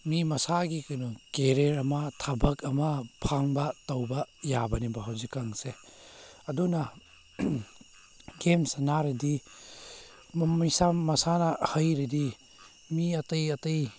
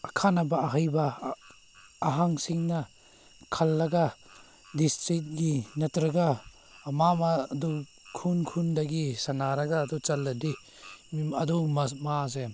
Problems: background sounds at intervals